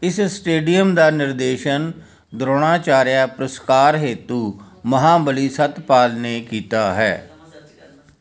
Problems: none marked